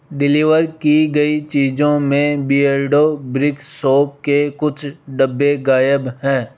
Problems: constant background noise